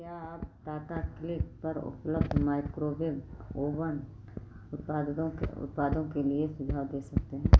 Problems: constant background noise